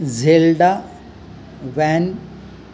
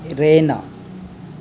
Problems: background sounds at intervals